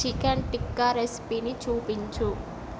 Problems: constant background noise